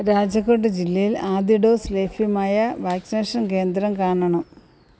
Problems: none marked